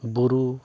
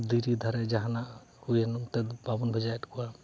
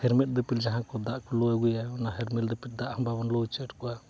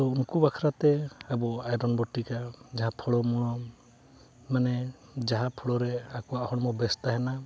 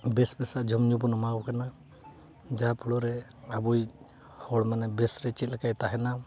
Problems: background conversations at intervals